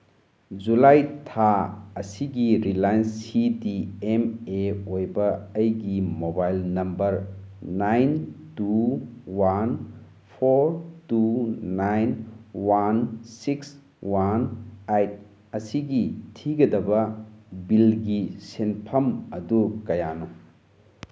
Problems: background sounds at intervals